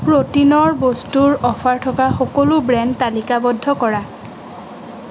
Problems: constant background noise